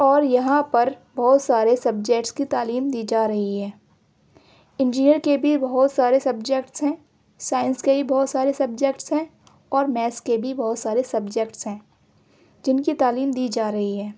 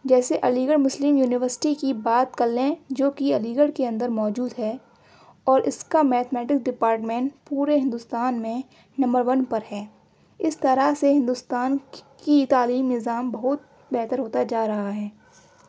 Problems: none marked